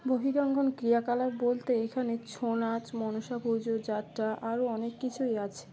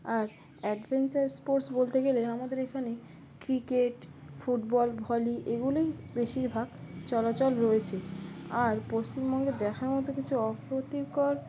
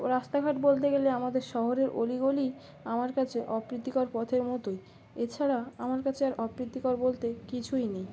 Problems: constant background noise